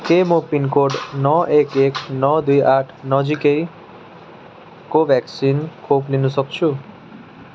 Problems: continuous background conversations